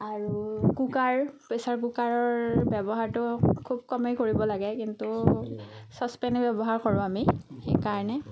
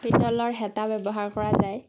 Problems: none marked